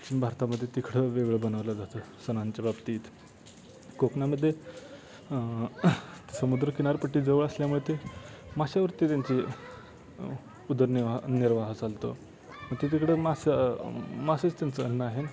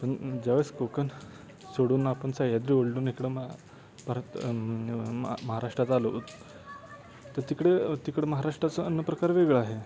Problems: constant background noise, continuous background conversations